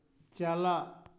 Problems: echo